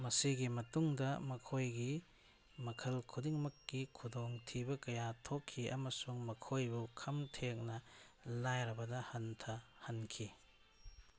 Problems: background sounds at intervals